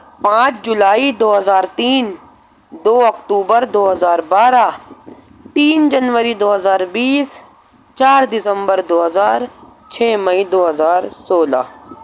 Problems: constant background noise